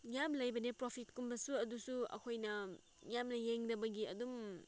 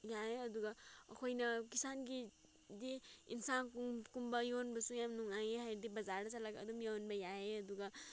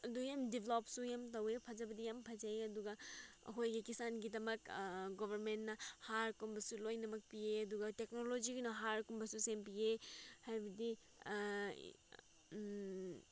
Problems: background sounds at intervals